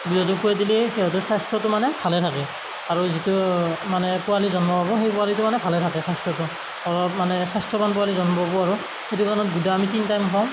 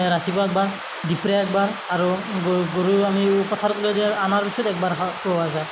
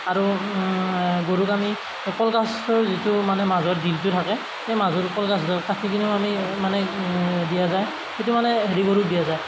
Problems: constant background noise, background conversations at intervals